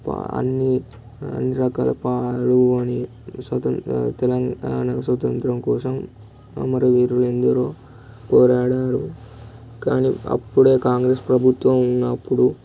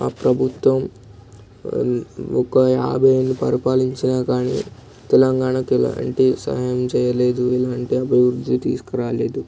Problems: none marked